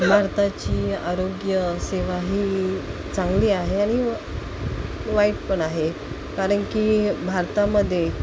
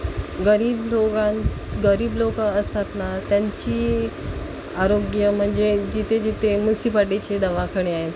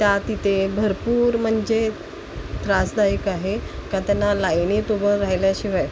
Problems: constant background noise